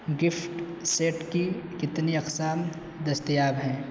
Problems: constant background noise